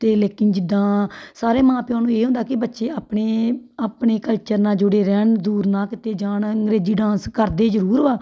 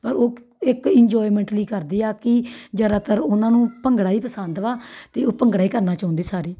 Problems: background sounds at intervals